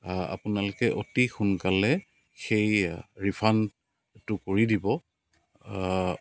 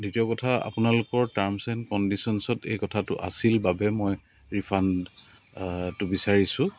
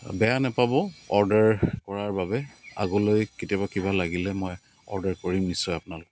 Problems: none marked